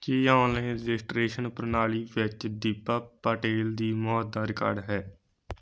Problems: none marked